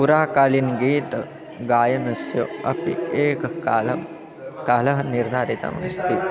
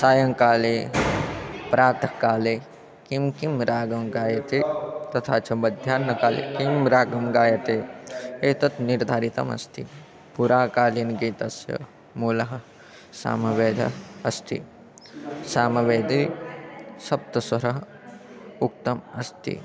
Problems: none marked